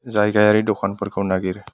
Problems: none marked